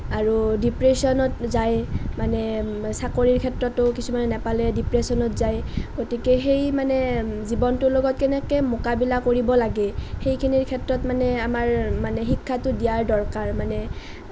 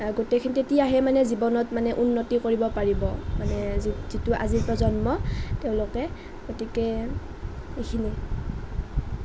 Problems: none marked